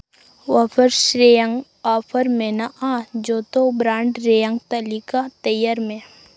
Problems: none marked